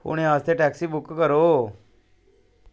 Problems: none marked